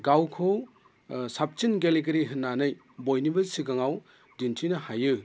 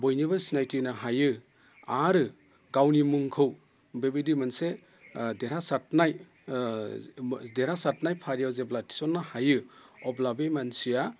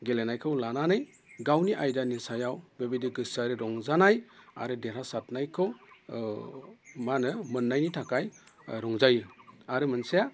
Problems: constant background noise